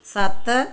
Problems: none marked